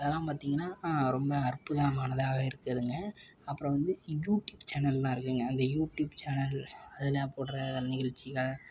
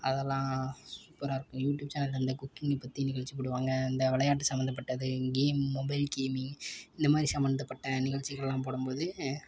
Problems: background sounds at intervals